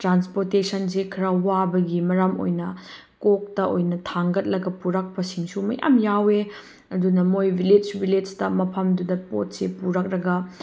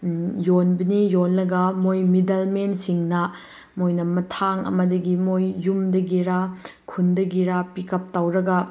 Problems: none marked